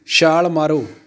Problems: constant background noise